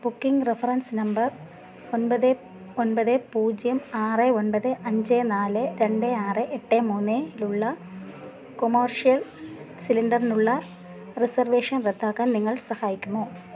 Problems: none marked